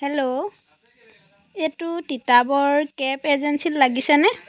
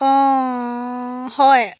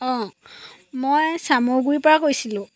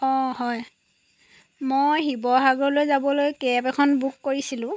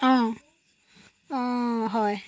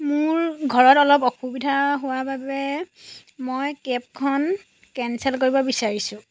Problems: none marked